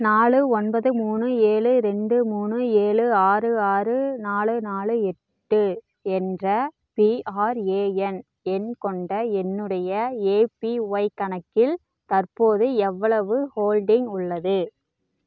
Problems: none marked